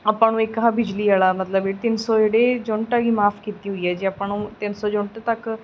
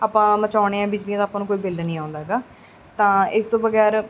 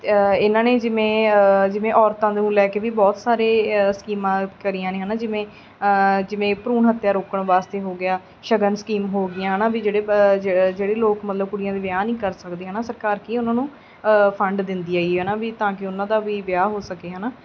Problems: none marked